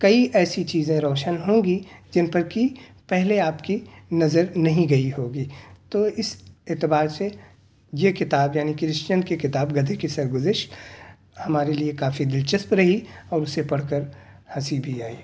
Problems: none marked